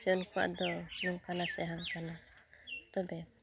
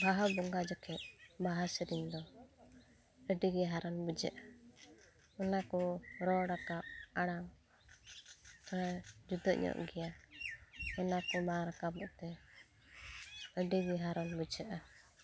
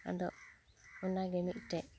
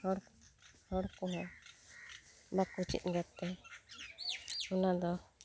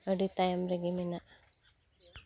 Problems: none marked